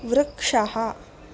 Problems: none marked